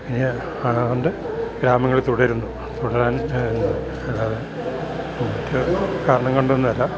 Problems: constant background noise